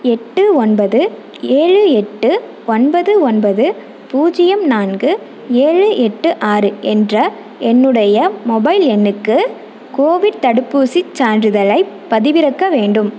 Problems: none marked